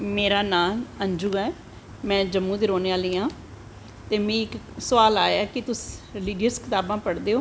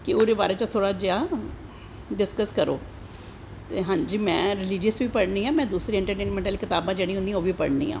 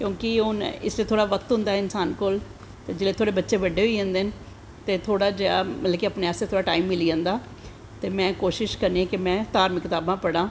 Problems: constant background noise, echo